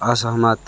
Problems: none marked